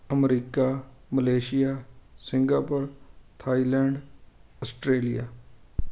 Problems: constant background noise